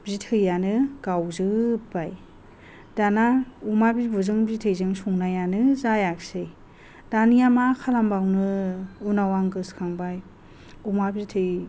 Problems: none marked